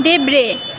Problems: constant background noise